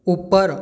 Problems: background sounds at intervals